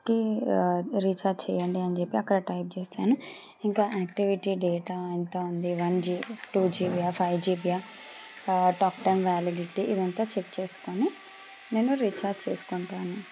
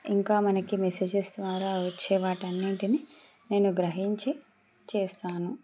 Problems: background sounds at intervals